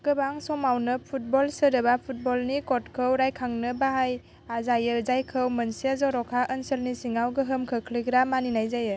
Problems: constant background noise